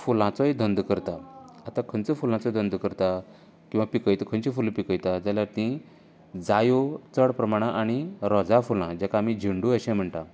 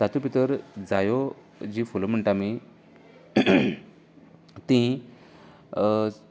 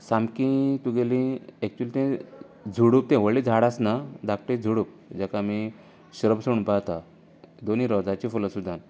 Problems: constant background noise